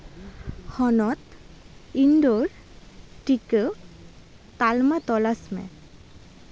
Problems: constant background noise